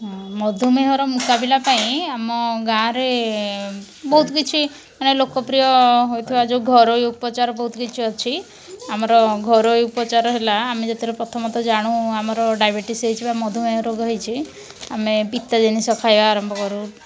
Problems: background sounds at intervals